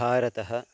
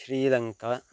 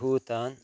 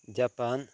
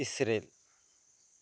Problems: constant background noise